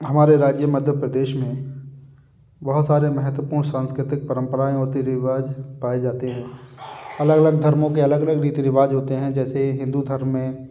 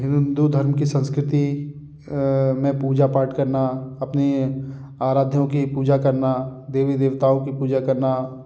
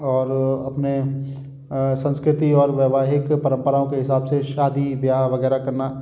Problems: background sounds at intervals